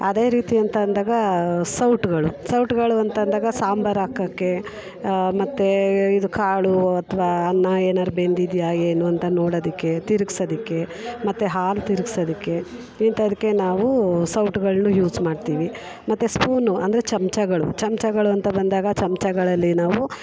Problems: background conversations at intervals